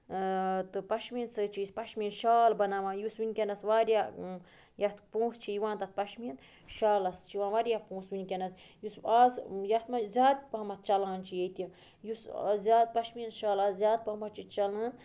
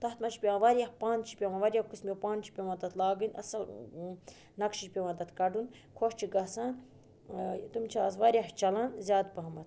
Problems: constant background noise